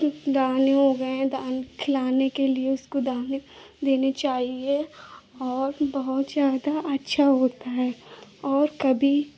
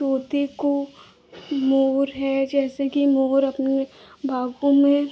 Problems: none marked